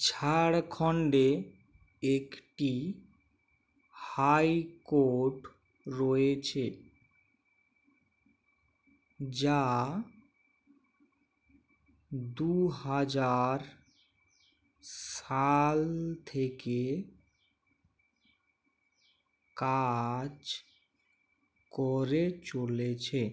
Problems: background sounds at intervals